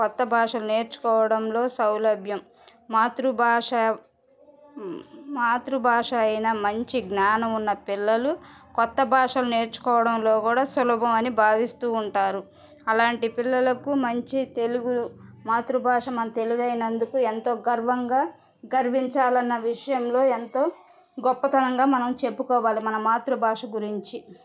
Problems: background sounds at intervals, background conversations at intervals